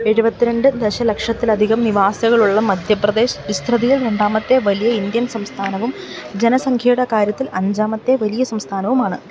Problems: none marked